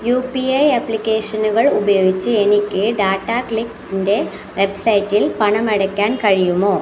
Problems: constant background noise, continuous background conversations